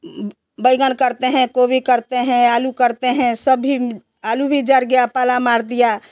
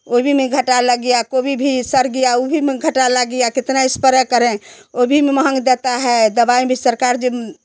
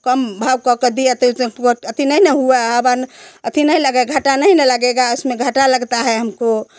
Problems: constant background noise